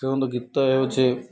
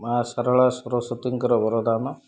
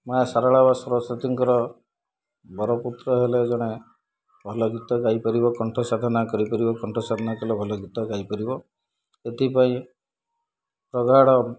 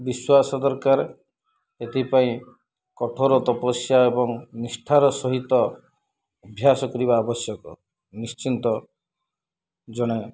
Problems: background sounds at intervals, low volume